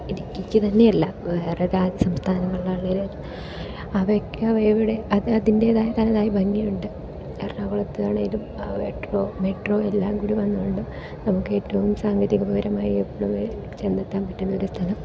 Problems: background sounds at intervals, low volume